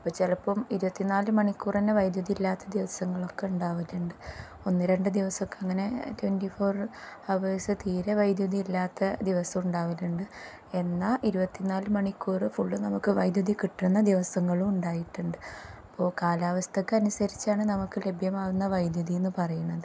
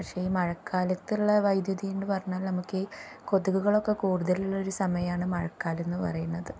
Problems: low volume